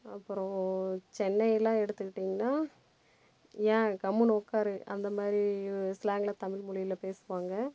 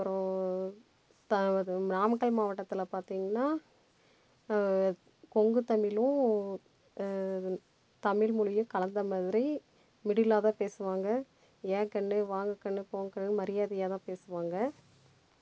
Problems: background sounds at intervals